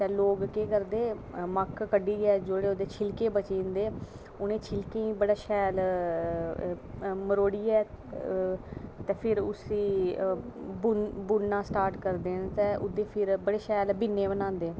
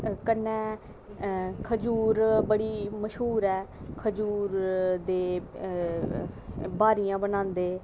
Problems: background sounds at intervals